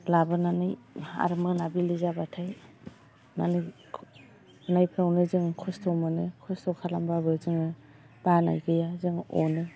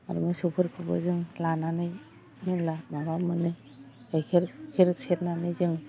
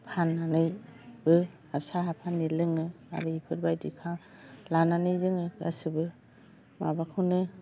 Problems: low volume